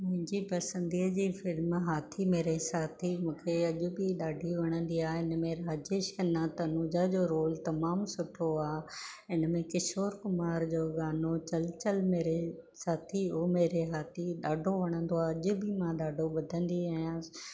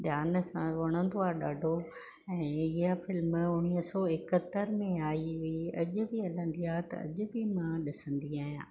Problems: none marked